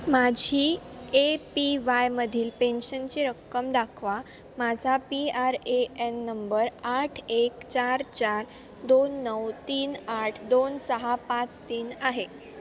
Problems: constant background noise, background conversations at intervals